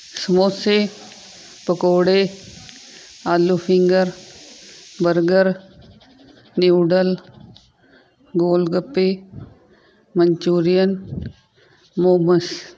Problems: none marked